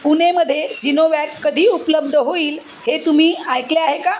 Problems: constant background noise, background conversations at intervals